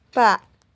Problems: none marked